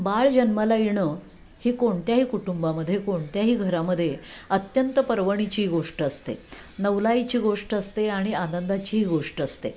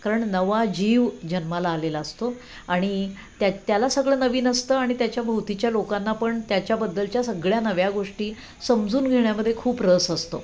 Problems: constant background noise, background conversations at intervals